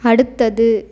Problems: none marked